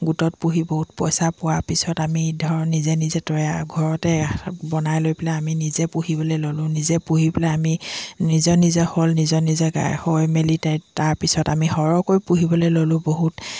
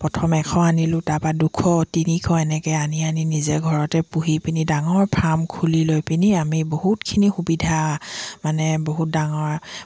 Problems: continuous background conversations